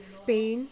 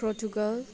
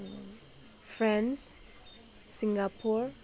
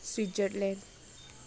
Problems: background conversations at intervals